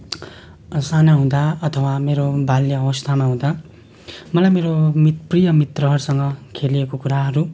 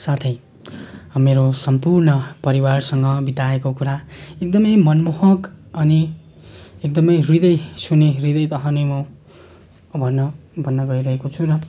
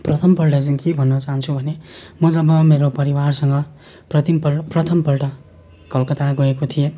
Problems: none marked